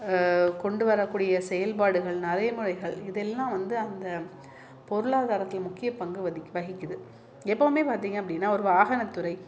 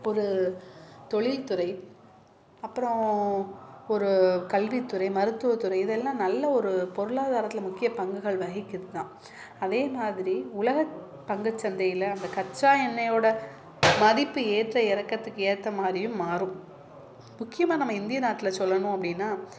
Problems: none marked